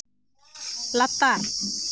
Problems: constant background noise